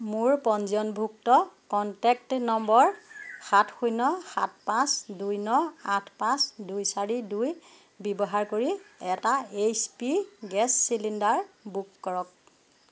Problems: background sounds at intervals